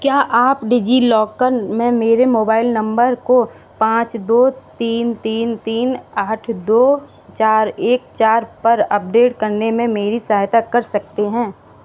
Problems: constant background noise